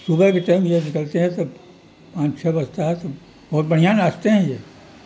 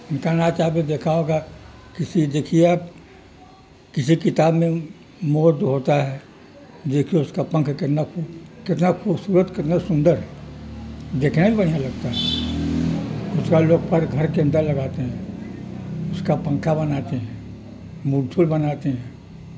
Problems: constant background noise